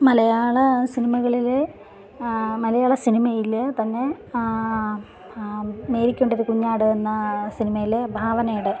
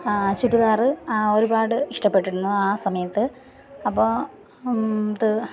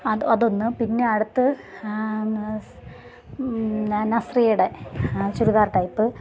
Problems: background sounds at intervals, background conversations at intervals